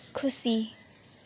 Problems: constant background noise